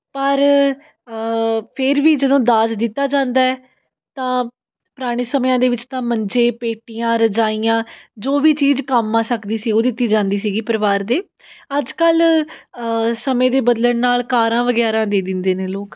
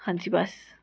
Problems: background sounds at intervals